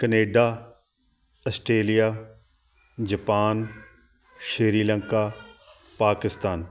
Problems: constant background noise